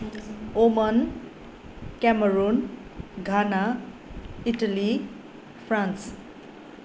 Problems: continuous background conversations